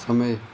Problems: none marked